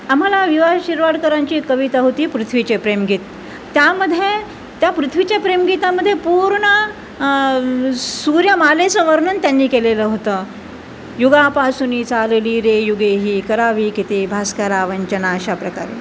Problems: constant background noise